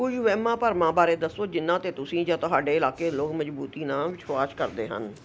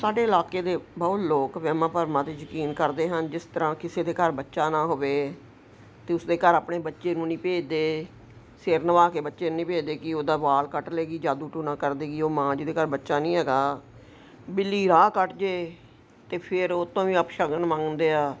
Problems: none marked